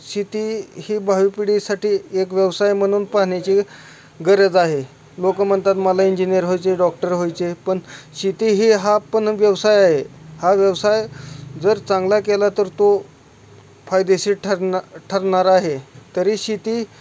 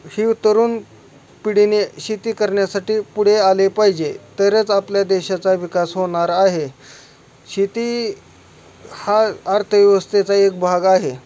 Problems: none marked